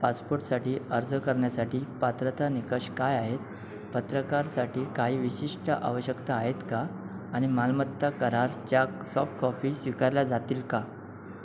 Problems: constant background noise